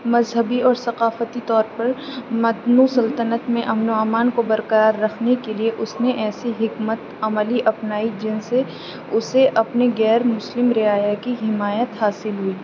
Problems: none marked